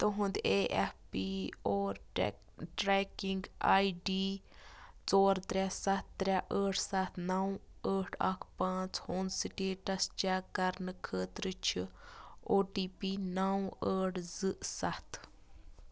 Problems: constant background noise